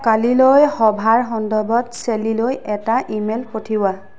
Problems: background conversations at intervals